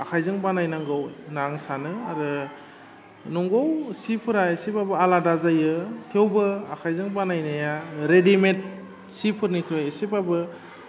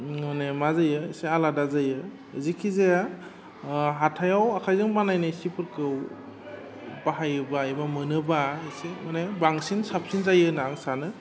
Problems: constant background noise